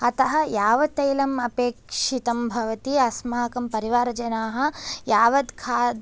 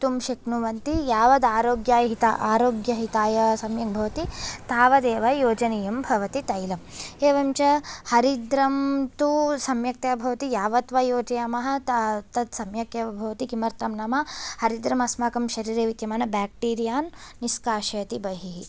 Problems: none marked